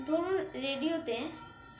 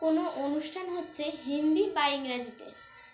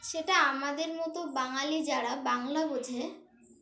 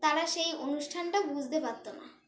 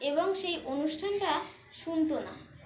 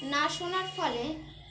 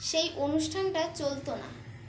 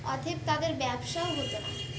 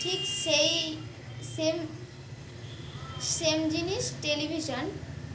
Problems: constant background noise, background conversations at intervals